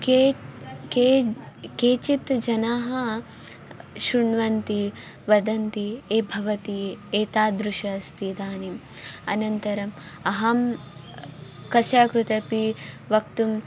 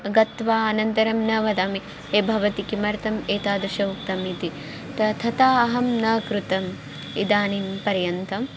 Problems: background sounds at intervals